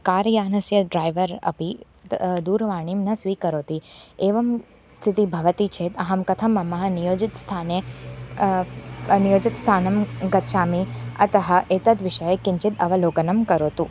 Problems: constant background noise, background conversations at intervals